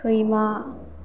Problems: none marked